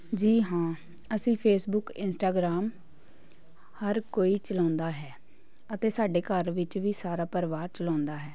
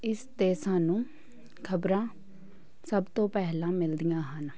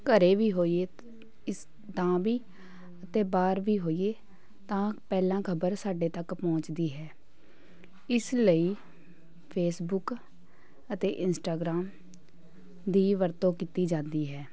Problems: continuous background conversations